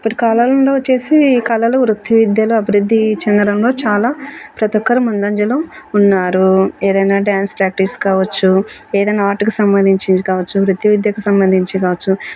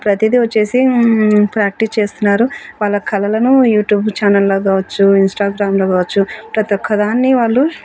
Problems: none marked